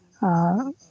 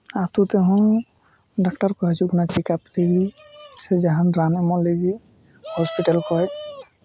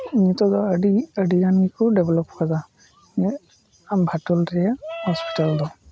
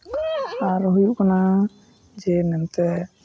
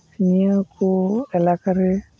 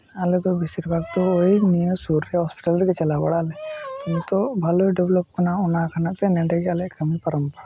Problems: background sounds at intervals